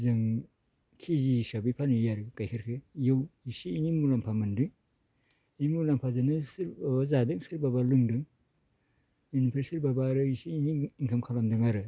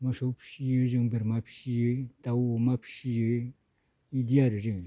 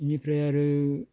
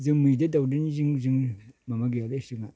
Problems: none marked